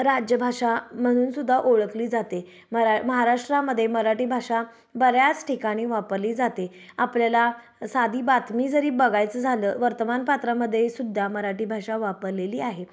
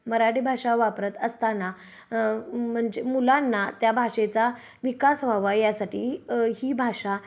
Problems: background sounds at intervals